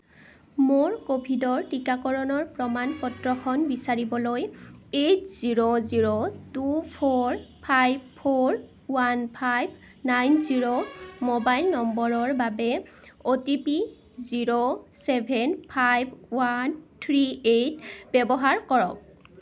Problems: none marked